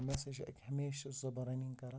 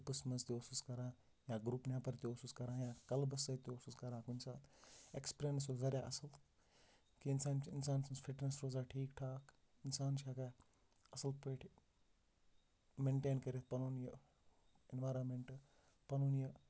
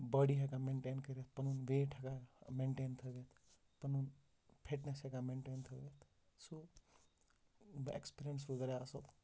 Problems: background sounds at intervals, low volume